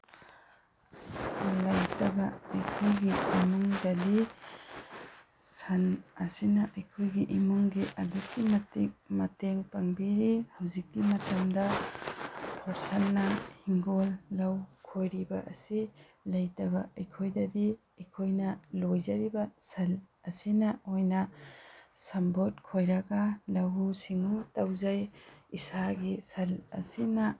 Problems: background sounds at intervals